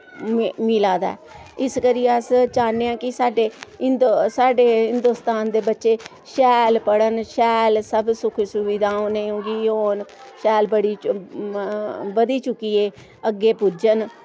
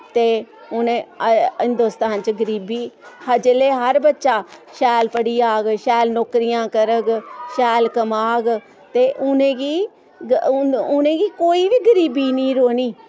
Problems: constant background noise